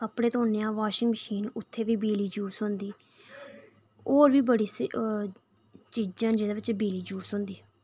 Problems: none marked